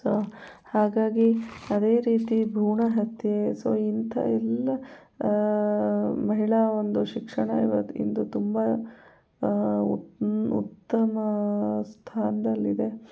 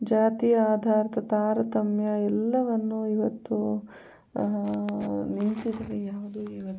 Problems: background sounds at intervals, low volume